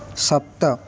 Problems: constant background noise